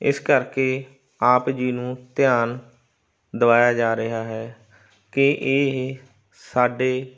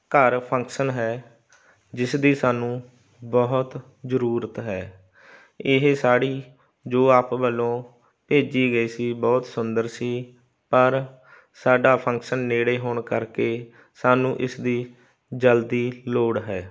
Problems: constant background noise